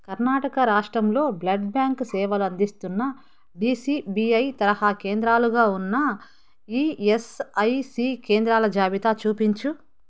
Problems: none marked